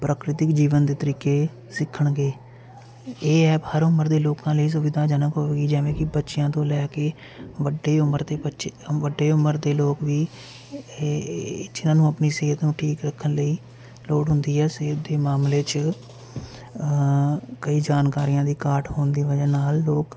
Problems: none marked